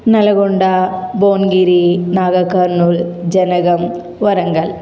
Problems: constant background noise